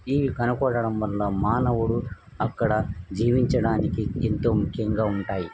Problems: background sounds at intervals